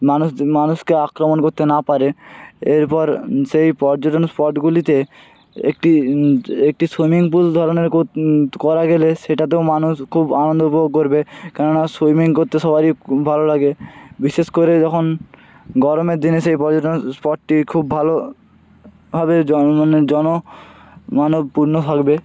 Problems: background sounds at intervals